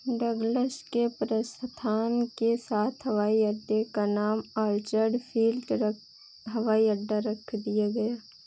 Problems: constant background noise